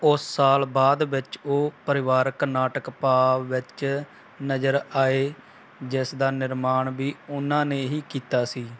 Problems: background sounds at intervals